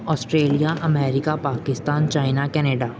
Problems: none marked